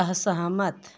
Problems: none marked